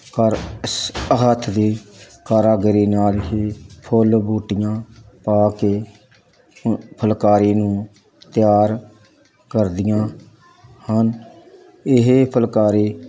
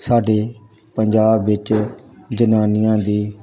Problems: constant background noise, background conversations at intervals